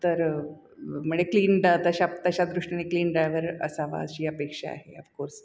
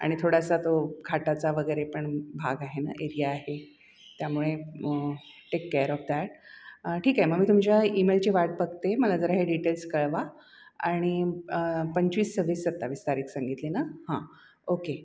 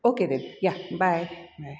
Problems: constant background noise